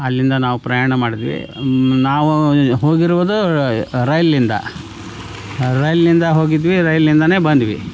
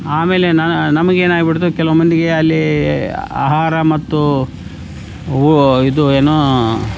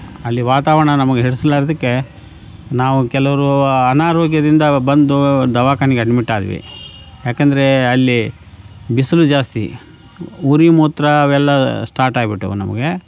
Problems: background sounds at intervals